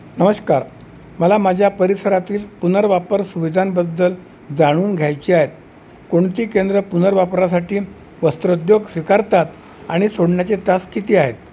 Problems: constant background noise